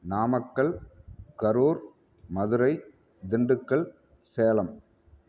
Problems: none marked